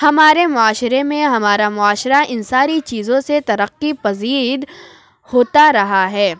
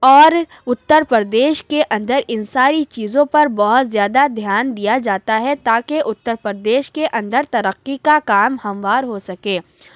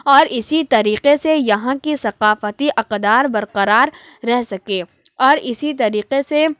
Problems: none marked